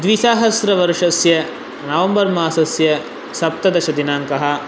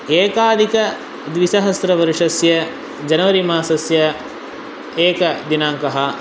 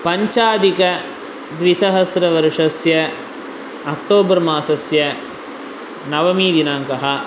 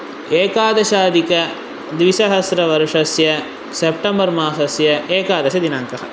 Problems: constant background noise